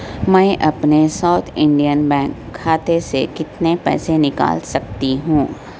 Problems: constant background noise